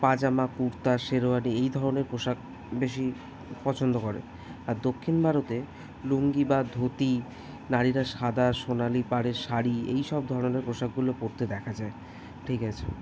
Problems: background sounds at intervals, continuous background conversations